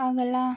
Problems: background sounds at intervals